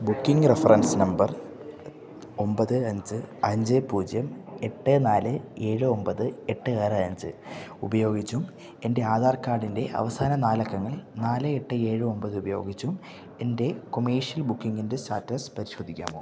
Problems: none marked